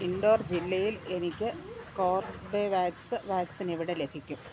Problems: none marked